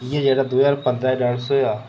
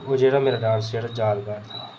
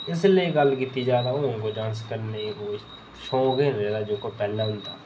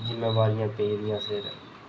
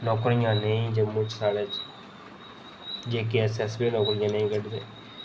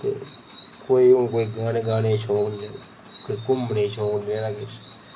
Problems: none marked